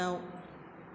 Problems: constant background noise